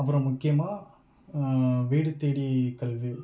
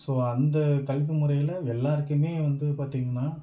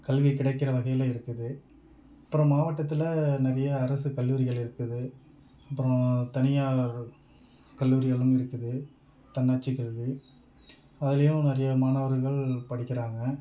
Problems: background sounds at intervals